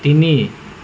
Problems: constant background noise